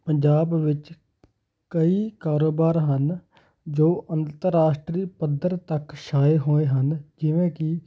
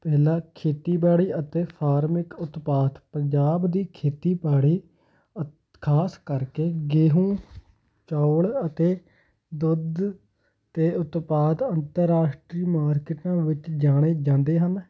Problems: none marked